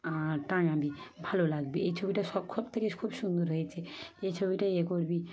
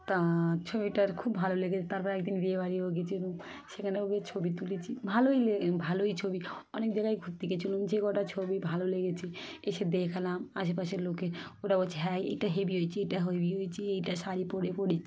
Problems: background sounds at intervals